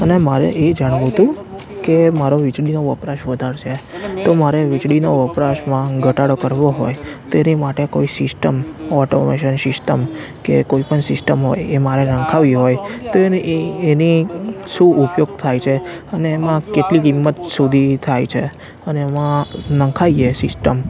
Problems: background conversations at intervals